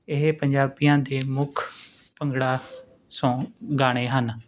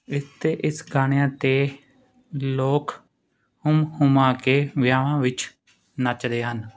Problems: none marked